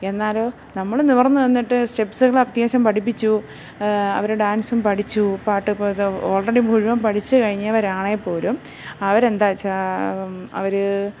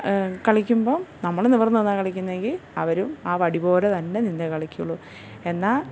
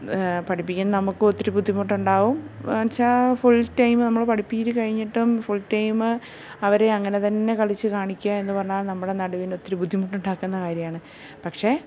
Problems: none marked